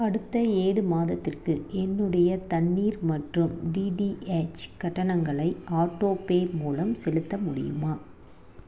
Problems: none marked